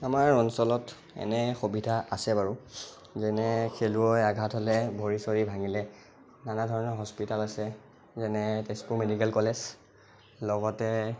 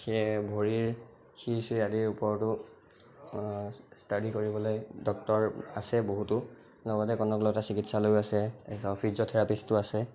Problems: constant background noise